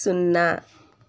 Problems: low volume